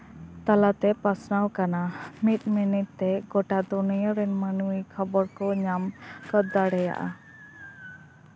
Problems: constant background noise, background conversations at intervals